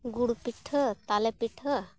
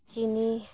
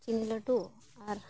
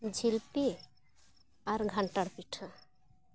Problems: none marked